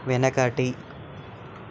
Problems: constant background noise